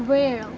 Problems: constant background noise